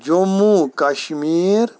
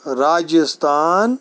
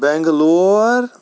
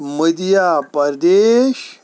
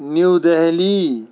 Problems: none marked